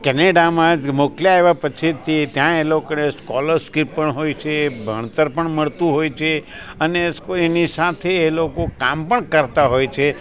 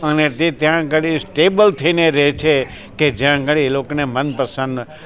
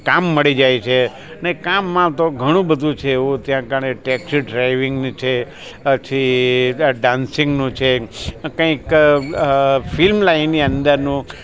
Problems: constant background noise, background conversations at intervals